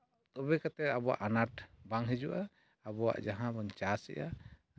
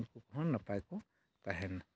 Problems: none marked